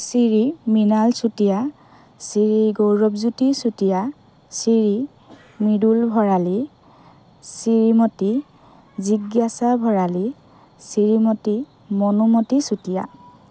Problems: none marked